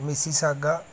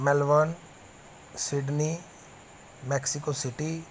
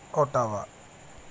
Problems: none marked